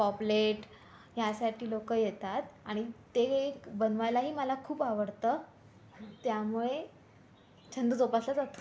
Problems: constant background noise, background conversations at intervals